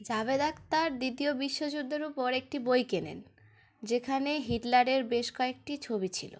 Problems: none marked